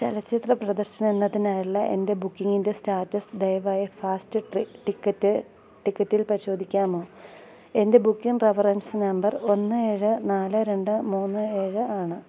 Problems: low volume